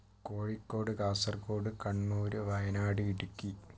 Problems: low volume